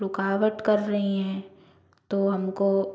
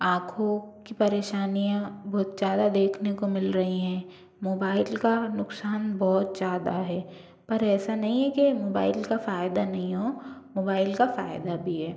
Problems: none marked